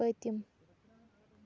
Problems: low volume